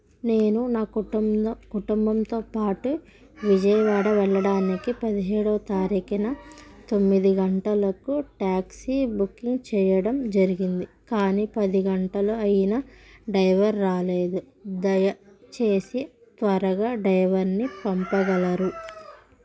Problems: background sounds at intervals